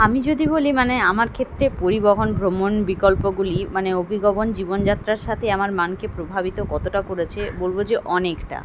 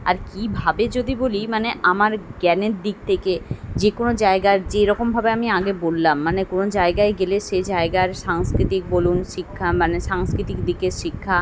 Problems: constant background noise